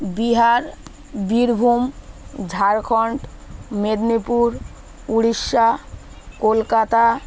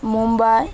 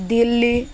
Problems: none marked